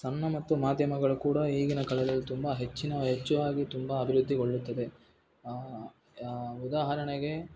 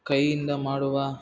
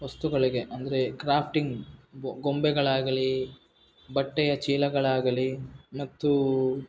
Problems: background sounds at intervals